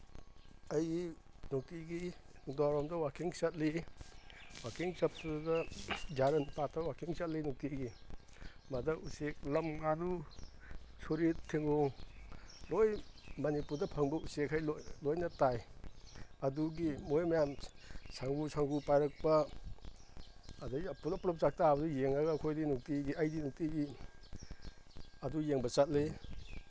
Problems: none marked